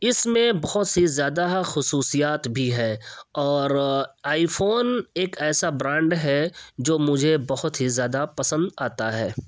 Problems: none marked